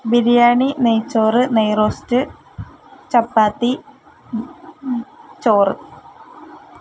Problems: none marked